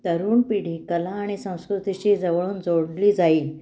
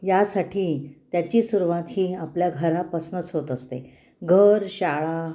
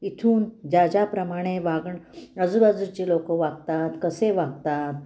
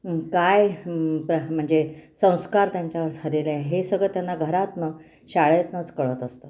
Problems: none marked